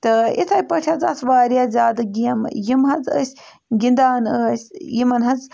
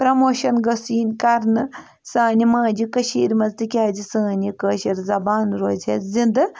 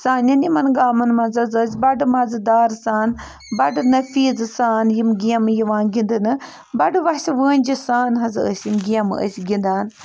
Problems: background sounds at intervals